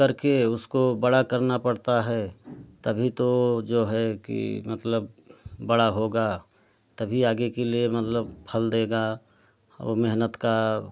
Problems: constant background noise